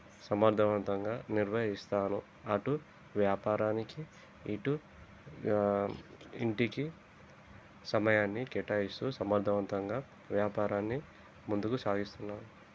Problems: constant background noise, low volume